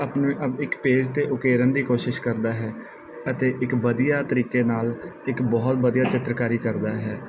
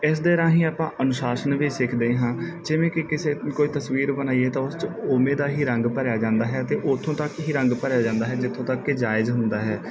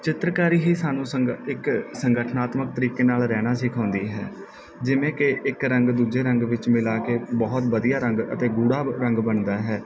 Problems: background sounds at intervals